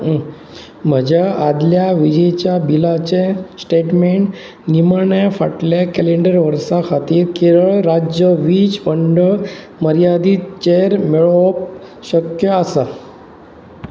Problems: constant background noise